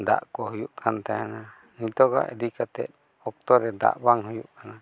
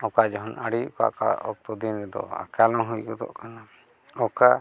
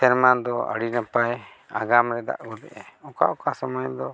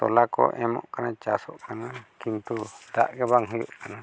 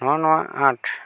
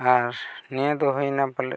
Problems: background sounds at intervals, background conversations at intervals